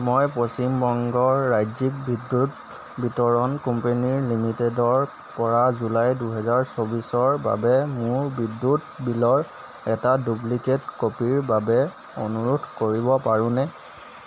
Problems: none marked